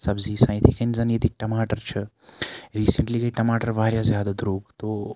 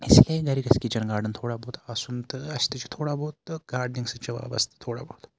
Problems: background sounds at intervals